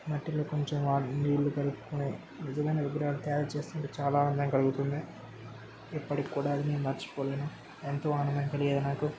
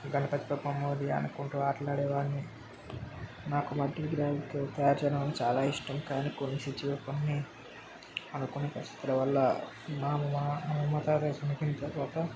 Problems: constant background noise